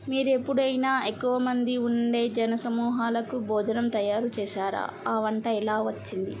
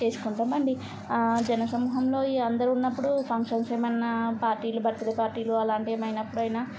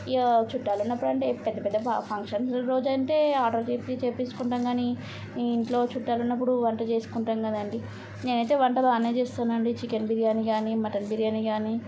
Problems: none marked